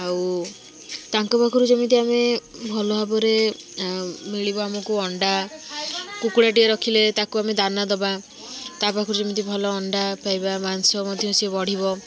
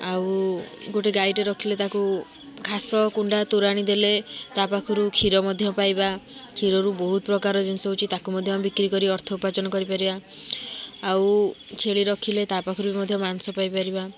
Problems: constant background noise, continuous background conversations